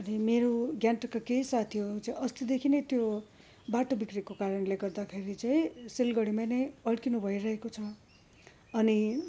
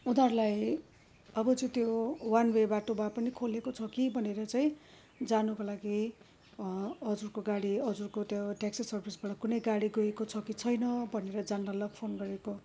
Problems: background sounds at intervals